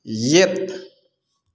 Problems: none marked